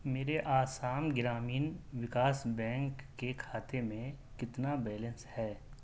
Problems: constant background noise